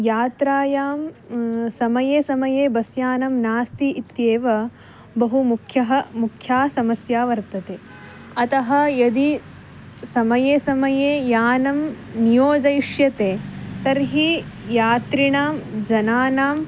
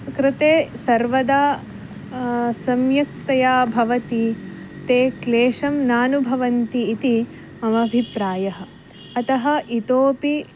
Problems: constant background noise